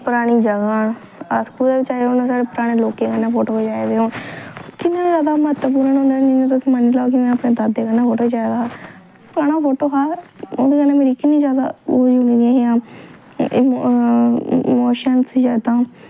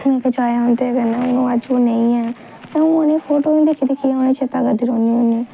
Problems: low volume